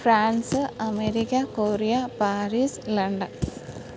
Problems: none marked